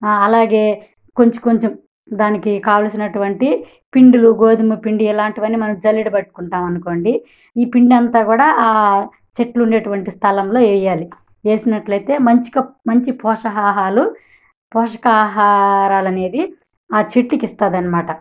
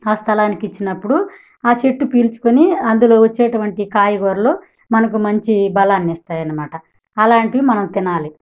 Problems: none marked